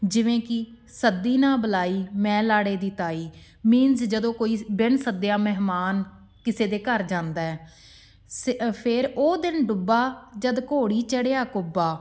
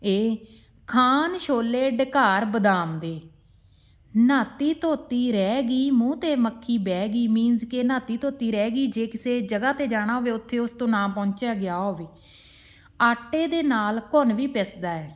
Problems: background sounds at intervals